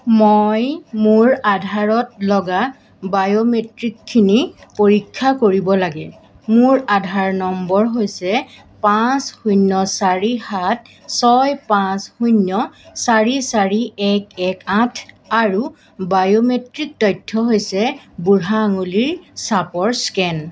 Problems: constant background noise